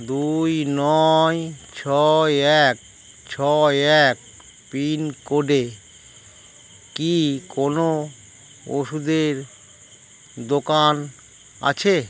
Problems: none marked